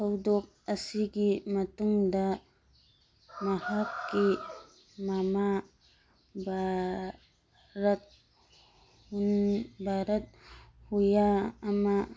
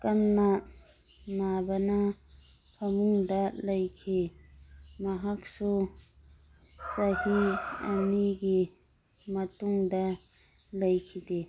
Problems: background sounds at intervals